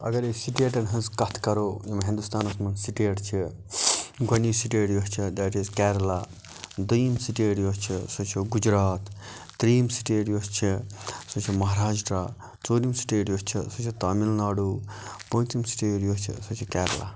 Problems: background sounds at intervals